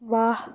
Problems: none marked